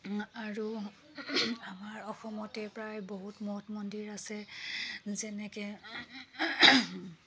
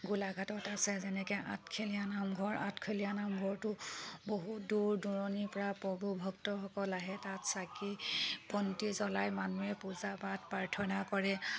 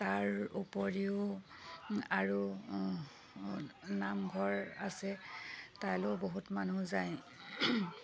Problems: background sounds at intervals